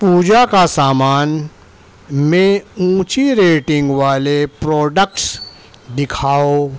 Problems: constant background noise